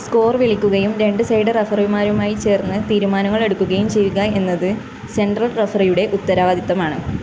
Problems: constant background noise